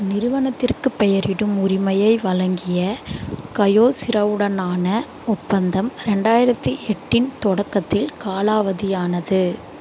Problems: constant background noise